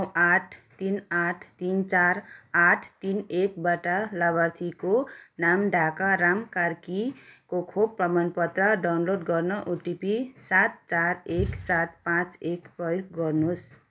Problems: background sounds at intervals, continuous background conversations